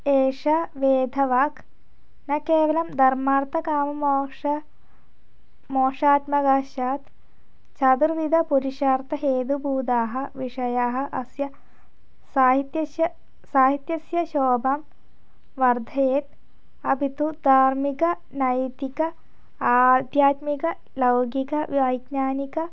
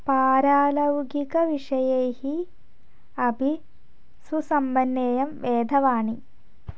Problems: none marked